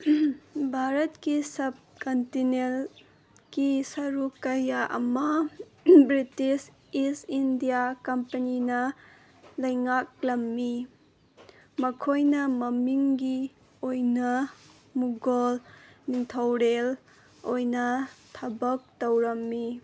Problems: none marked